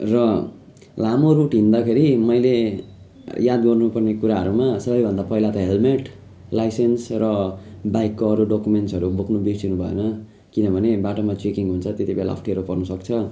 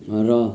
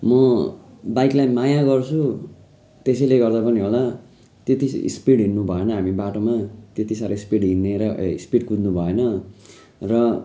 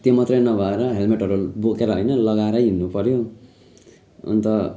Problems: continuous background conversations